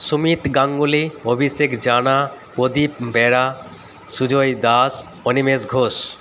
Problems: none marked